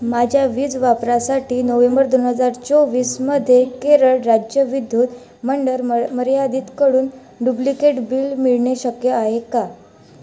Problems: background sounds at intervals, background conversations at intervals